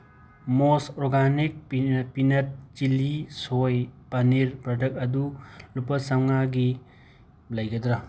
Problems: constant background noise